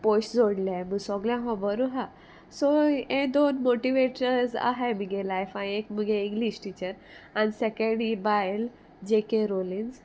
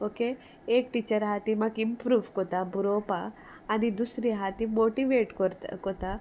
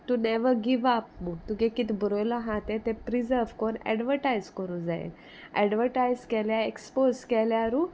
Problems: none marked